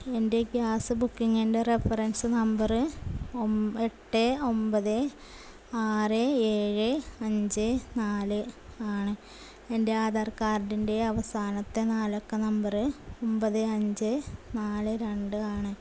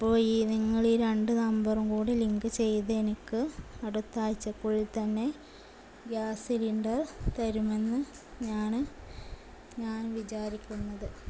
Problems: none marked